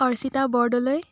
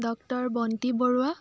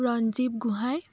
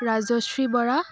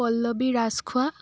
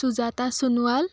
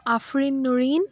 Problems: constant background noise, background conversations at intervals